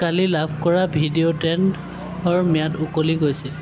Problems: constant background noise, continuous background conversations